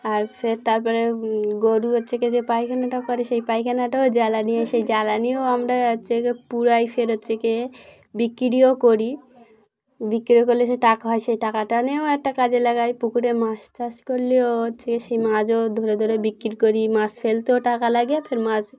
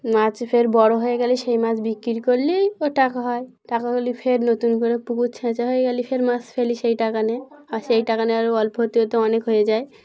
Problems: none marked